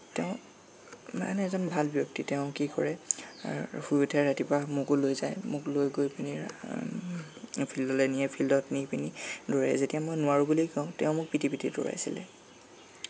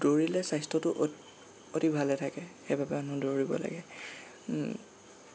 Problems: constant background noise